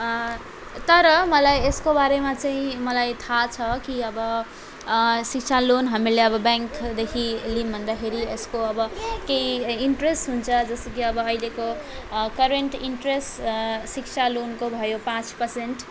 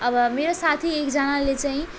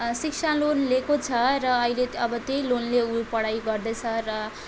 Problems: constant background noise